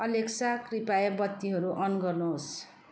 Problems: none marked